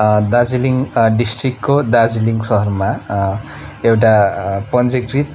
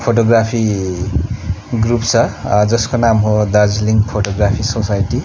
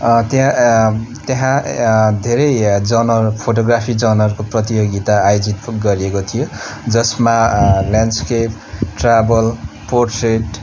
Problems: constant background noise, continuous background conversations